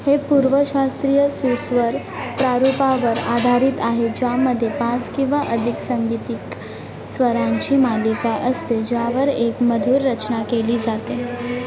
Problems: constant background noise, background conversations at intervals